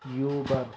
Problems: background sounds at intervals, low volume